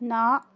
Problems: none marked